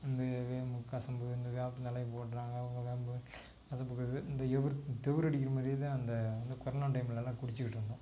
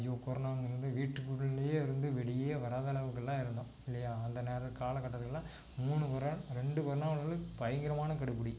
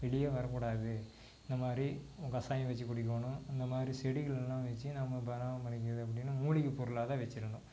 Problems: constant background noise